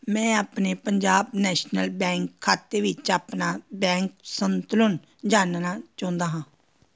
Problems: none marked